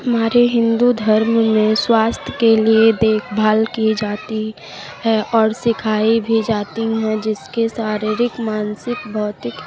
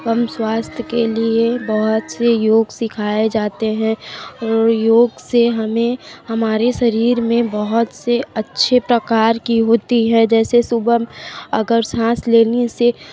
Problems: background sounds at intervals, continuous background conversations